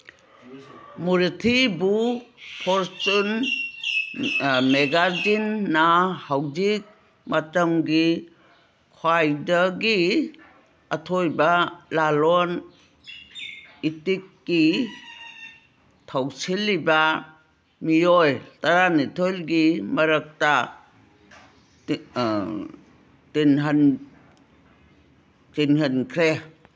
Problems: background sounds at intervals